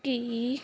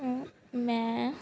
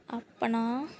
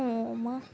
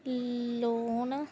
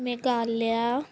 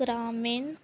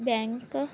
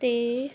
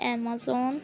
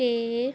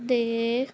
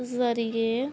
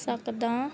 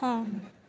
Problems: none marked